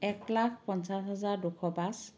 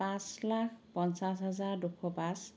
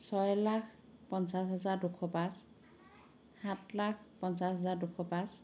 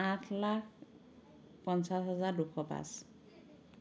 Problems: background conversations at intervals